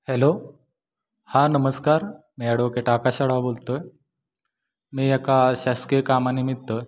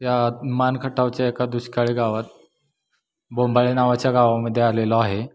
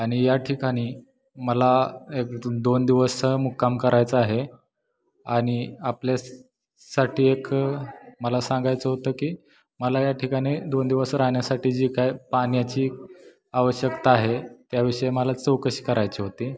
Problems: constant background noise